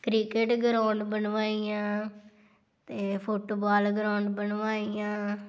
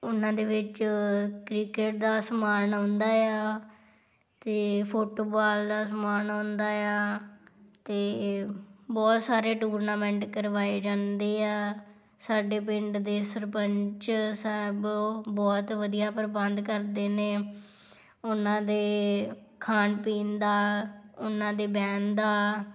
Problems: none marked